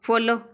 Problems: background conversations at intervals